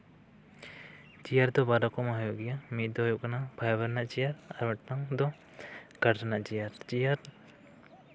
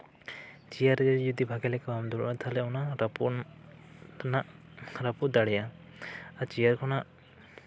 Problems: none marked